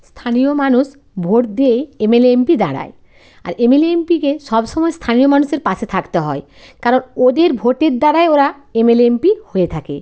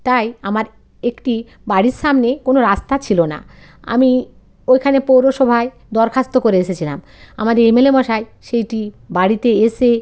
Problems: none marked